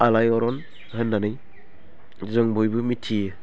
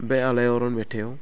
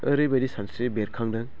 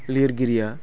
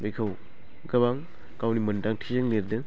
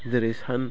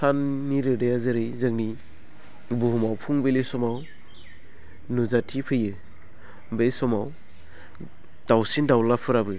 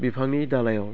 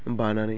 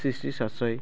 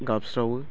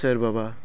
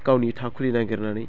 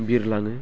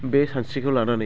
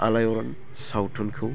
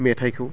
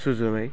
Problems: low volume